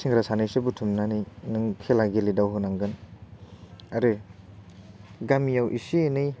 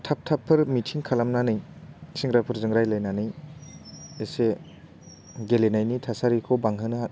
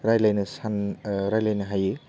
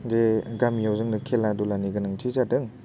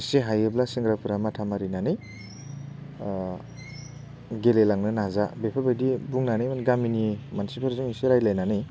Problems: none marked